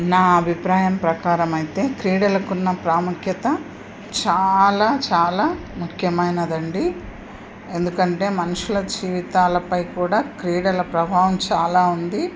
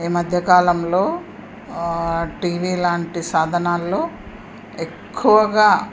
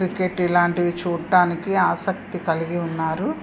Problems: none marked